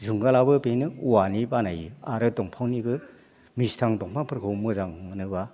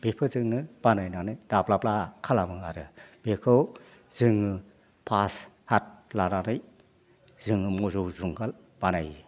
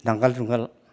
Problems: constant background noise